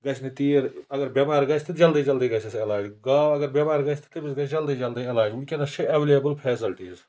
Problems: constant background noise